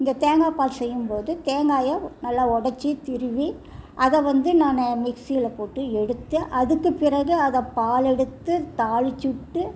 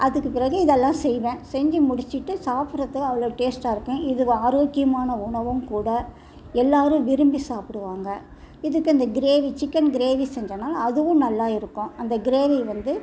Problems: constant background noise